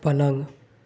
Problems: none marked